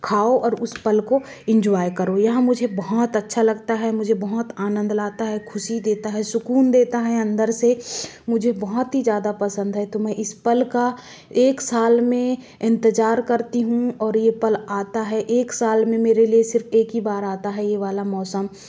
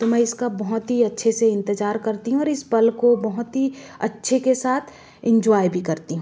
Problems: none marked